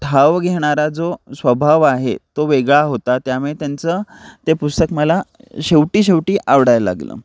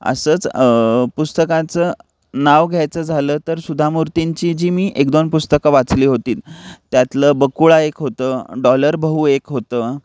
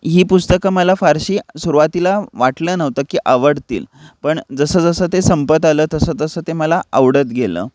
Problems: background sounds at intervals